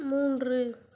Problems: low volume